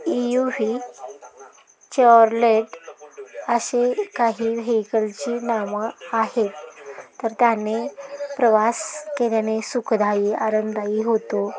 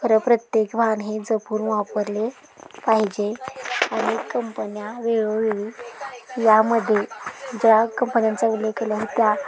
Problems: constant background noise, continuous background conversations